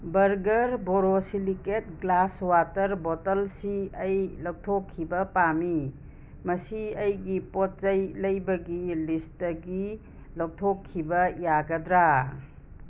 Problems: constant background noise